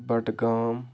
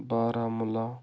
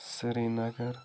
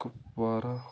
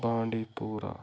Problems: constant background noise